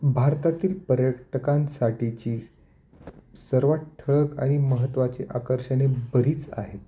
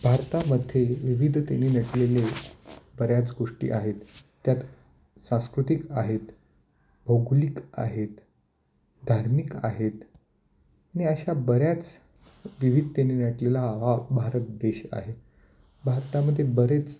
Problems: none marked